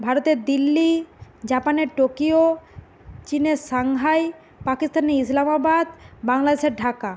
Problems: constant background noise